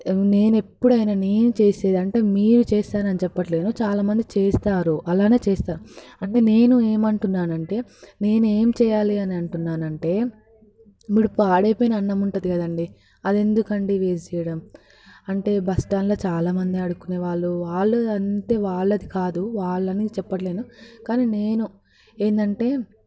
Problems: constant background noise